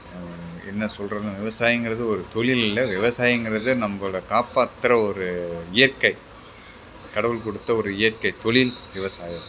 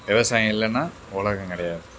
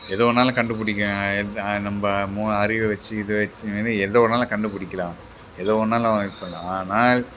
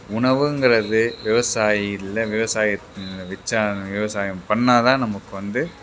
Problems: background sounds at intervals